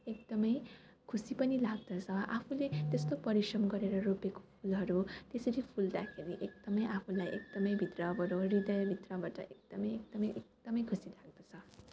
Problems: background sounds at intervals, background conversations at intervals